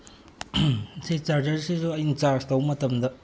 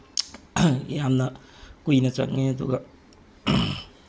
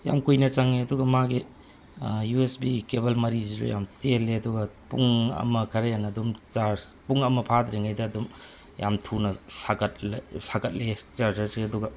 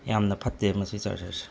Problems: constant background noise